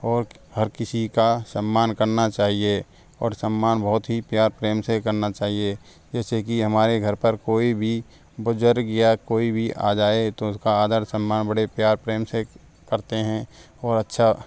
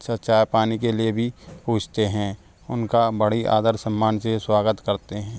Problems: background sounds at intervals